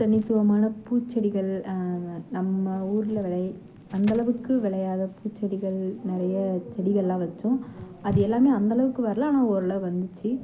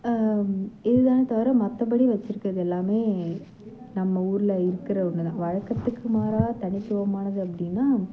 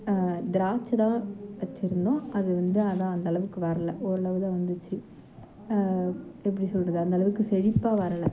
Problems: background sounds at intervals, low volume